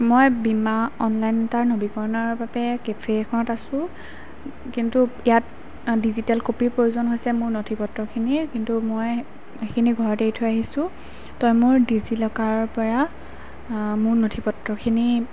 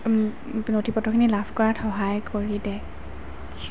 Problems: constant background noise